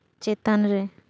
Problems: none marked